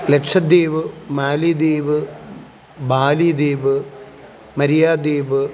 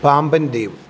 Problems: background sounds at intervals